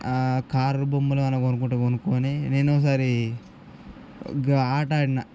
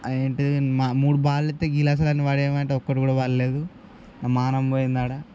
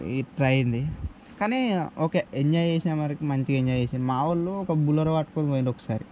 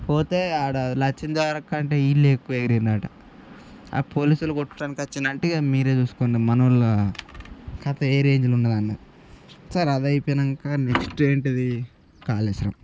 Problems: background sounds at intervals